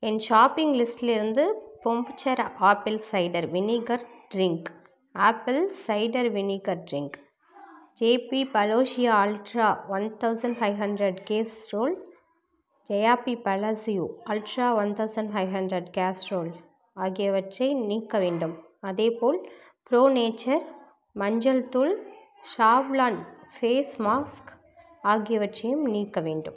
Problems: none marked